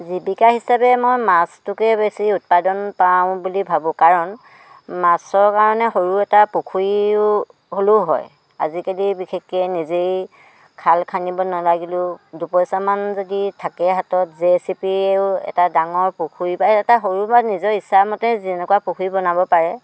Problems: background sounds at intervals